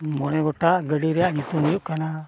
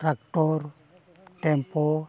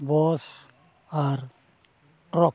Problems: none marked